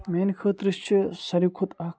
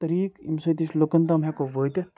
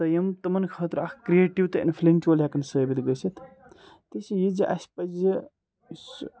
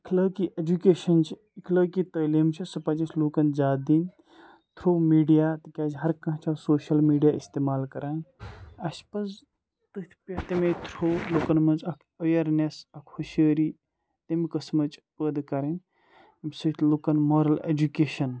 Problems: background sounds at intervals, background conversations at intervals